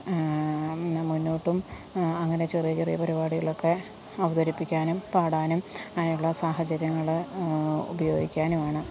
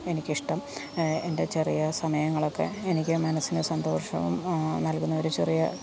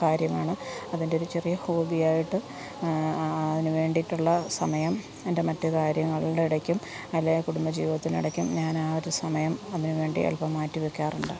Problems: background sounds at intervals